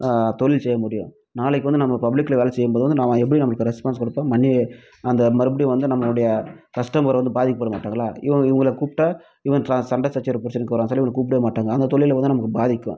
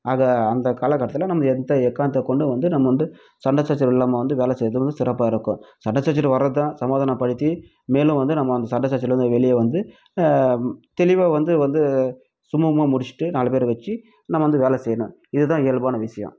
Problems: none marked